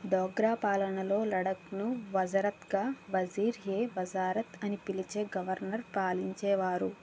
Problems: constant background noise